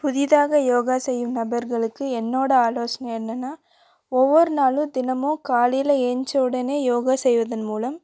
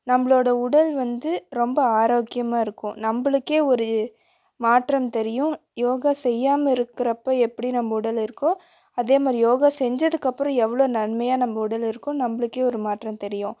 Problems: none marked